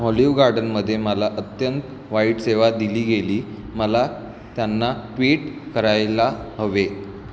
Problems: constant background noise